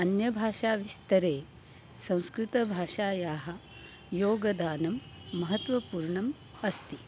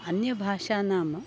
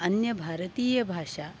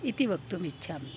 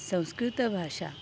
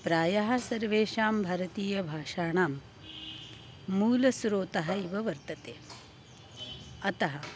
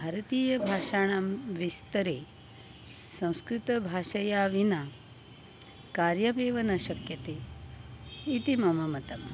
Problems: constant background noise